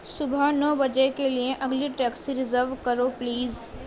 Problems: constant background noise, low volume